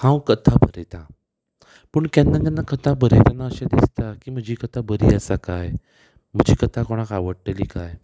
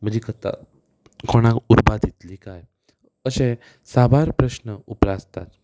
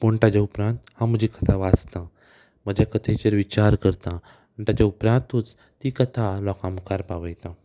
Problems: none marked